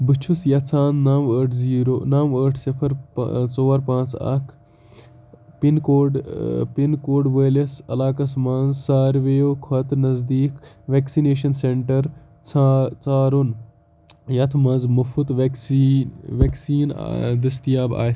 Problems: none marked